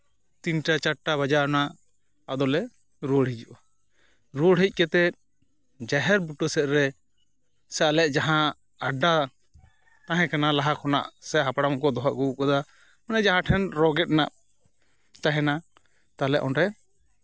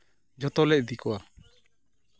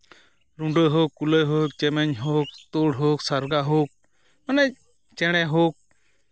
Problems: none marked